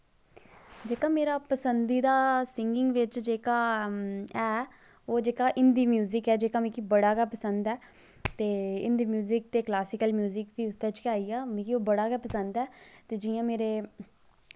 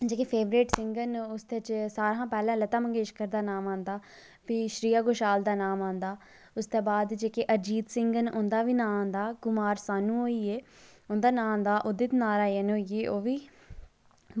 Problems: low volume